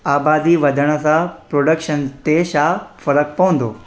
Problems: constant background noise, echo